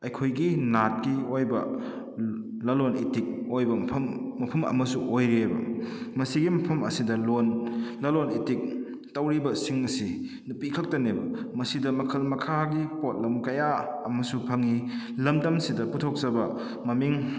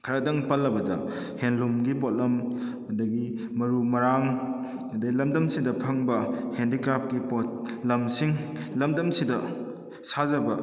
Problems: echo